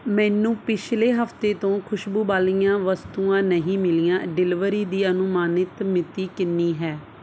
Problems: none marked